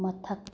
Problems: low volume